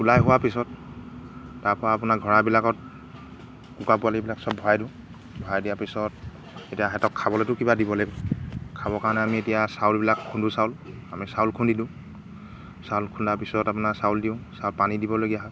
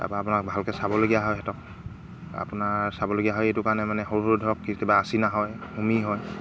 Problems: background sounds at intervals